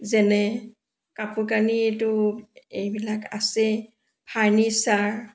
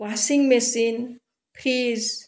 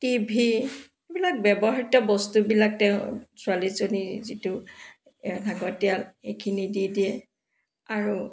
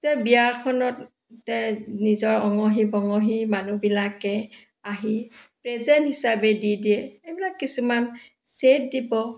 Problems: background sounds at intervals